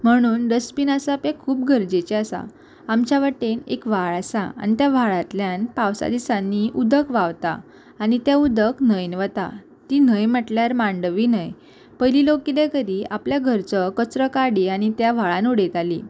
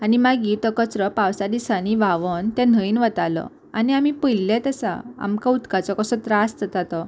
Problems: constant background noise